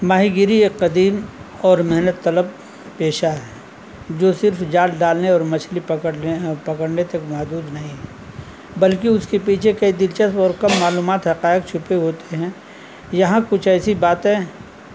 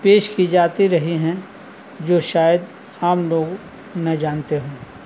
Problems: constant background noise